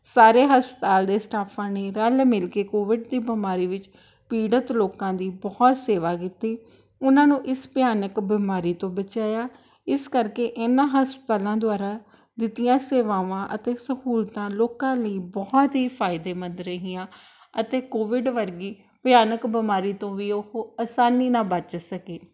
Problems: background sounds at intervals